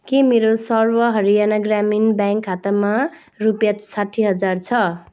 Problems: background sounds at intervals